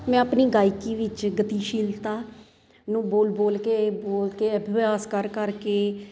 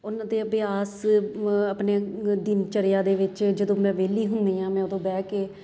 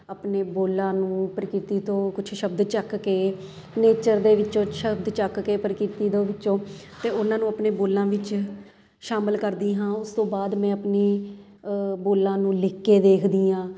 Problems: none marked